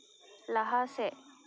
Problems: low volume